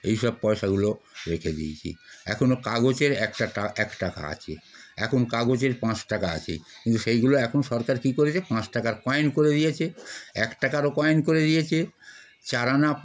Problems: none marked